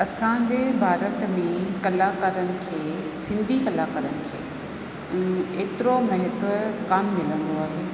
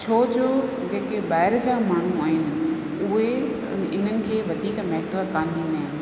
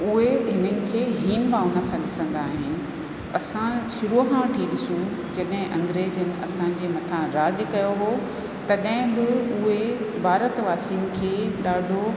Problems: constant background noise, echo